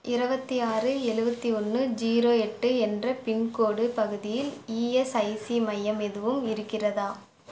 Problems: background sounds at intervals